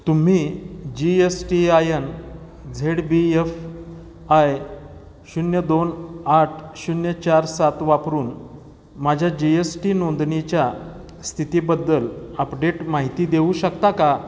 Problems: constant background noise, echo